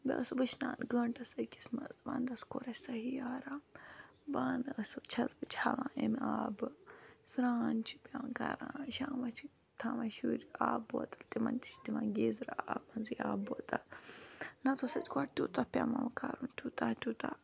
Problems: background sounds at intervals